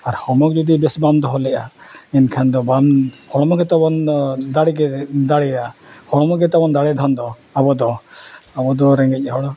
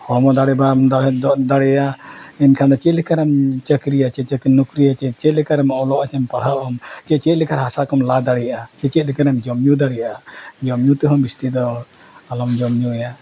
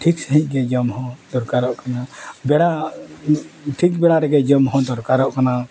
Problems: none marked